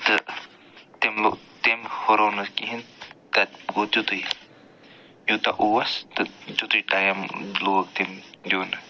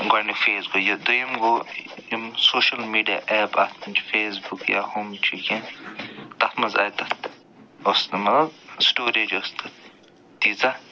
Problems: constant background noise